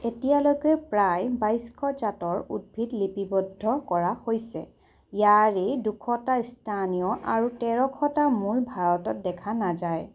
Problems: none marked